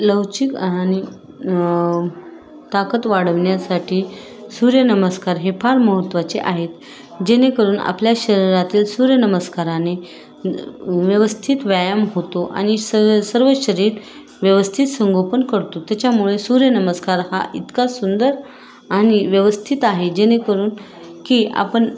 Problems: constant background noise